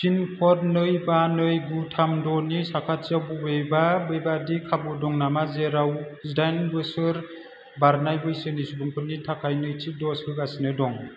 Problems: constant background noise